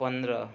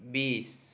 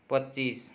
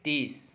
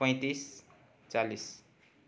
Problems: background conversations at intervals